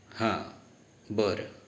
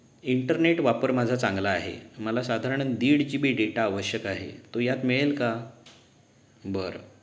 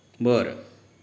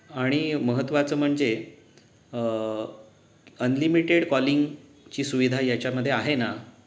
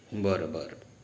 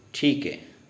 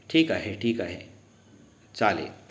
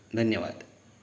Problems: background sounds at intervals